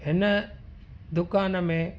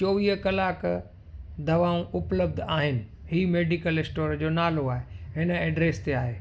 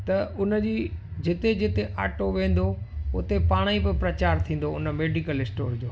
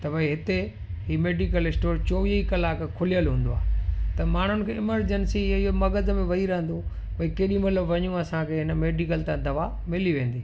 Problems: constant background noise